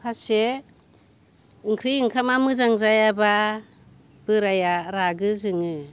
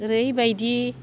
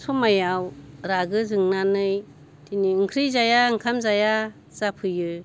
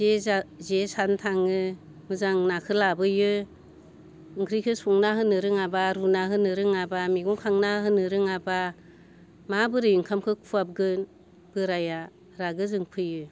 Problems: constant background noise